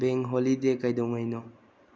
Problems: low volume